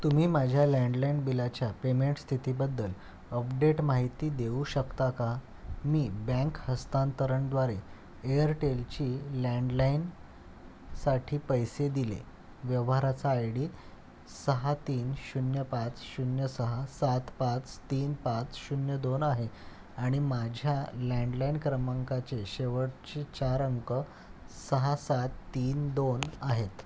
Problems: none marked